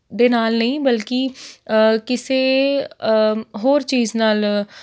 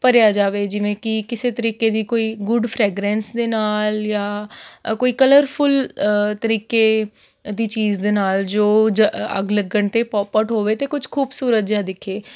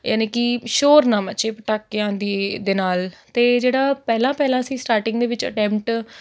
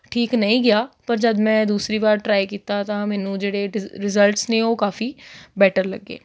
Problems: none marked